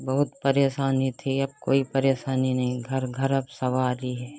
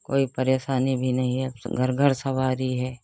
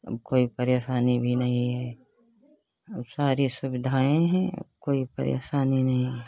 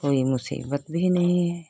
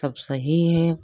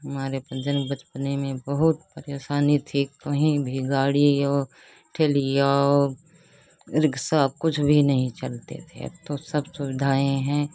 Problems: constant background noise